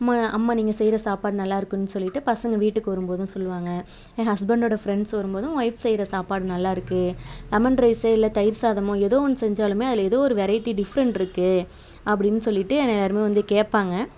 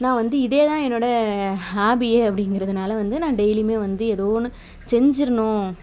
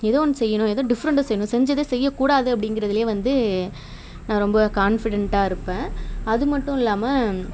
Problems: constant background noise